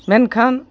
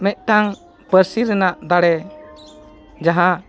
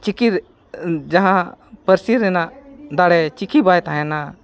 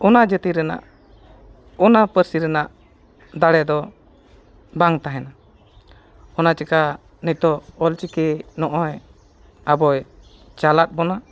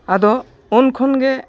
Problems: background sounds at intervals